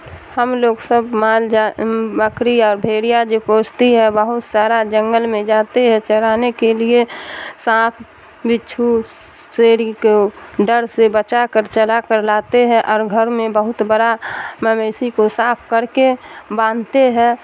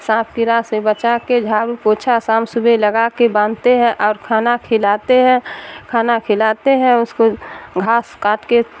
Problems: constant background noise